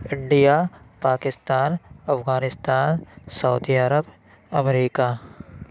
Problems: none marked